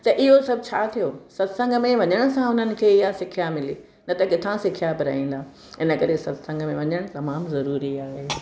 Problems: none marked